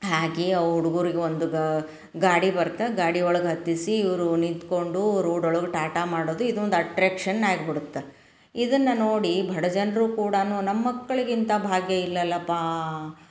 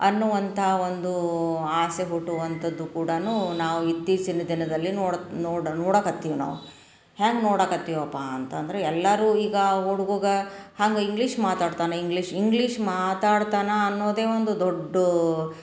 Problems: none marked